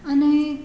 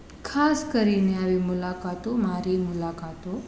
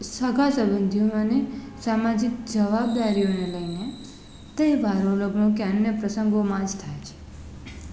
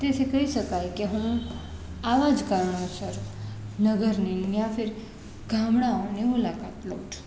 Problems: none marked